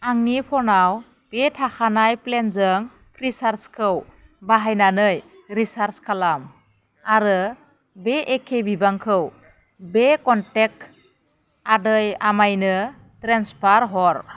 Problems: none marked